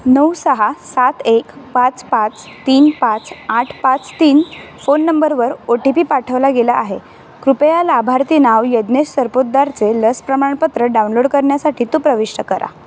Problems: constant background noise